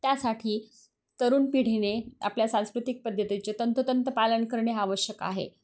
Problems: constant background noise